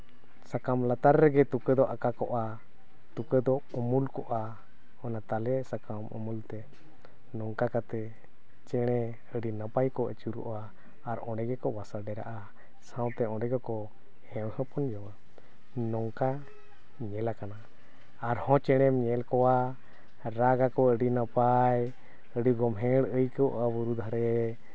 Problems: none marked